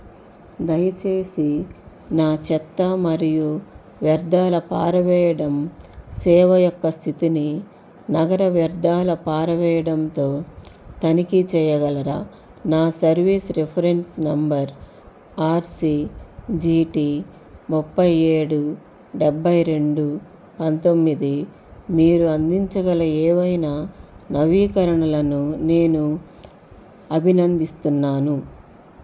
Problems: constant background noise